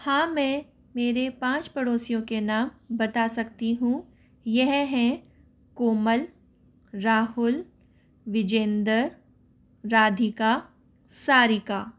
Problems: none marked